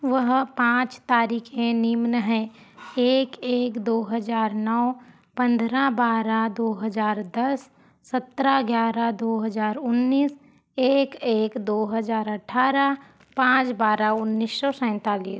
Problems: constant background noise